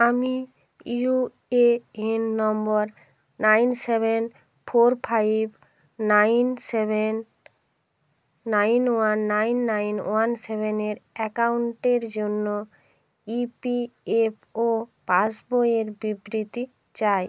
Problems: none marked